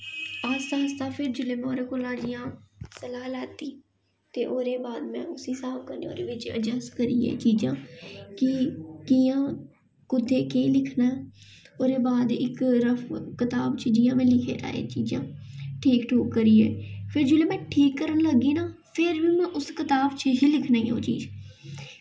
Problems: echo